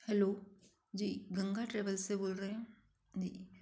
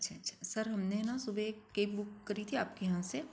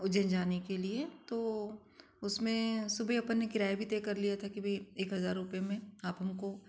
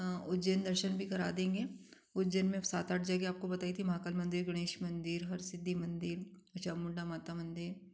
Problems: constant background noise